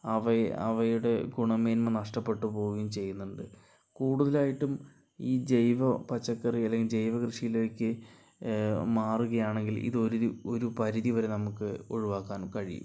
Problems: low volume